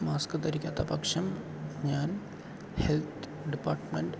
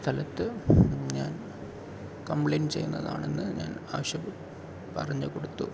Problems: constant background noise, low volume